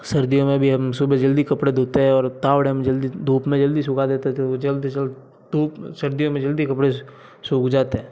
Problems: background sounds at intervals, low volume